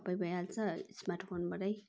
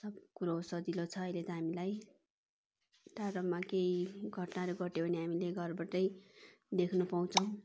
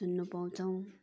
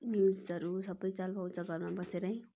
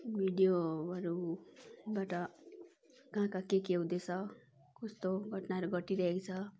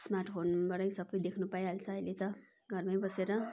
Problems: none marked